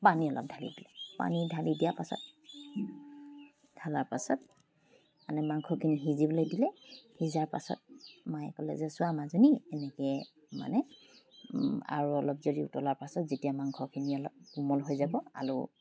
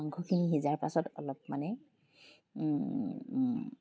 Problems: background sounds at intervals